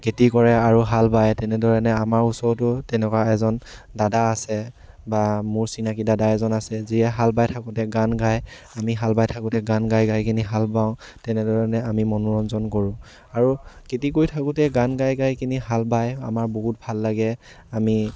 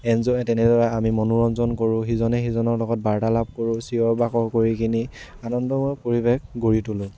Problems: none marked